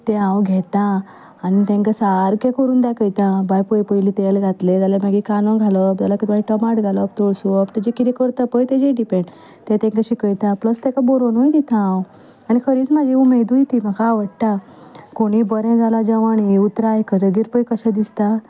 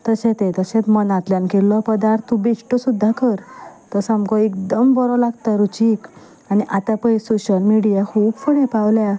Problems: none marked